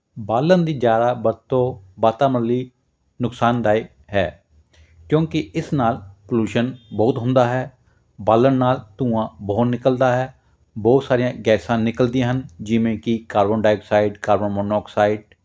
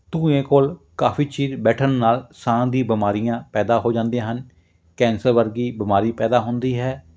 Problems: none marked